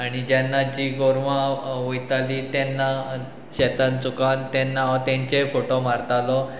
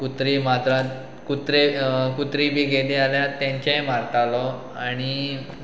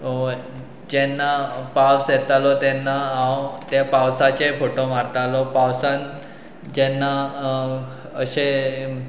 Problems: background sounds at intervals